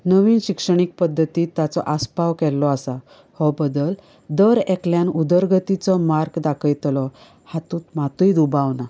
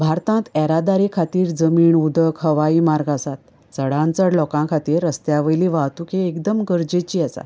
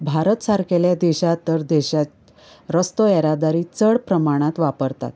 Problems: none marked